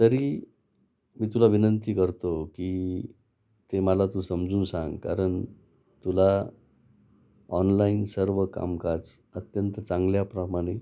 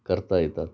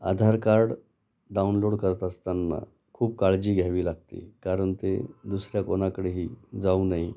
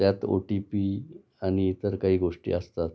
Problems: constant background noise